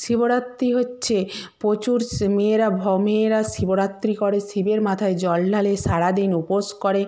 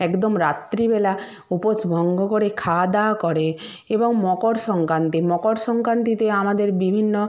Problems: none marked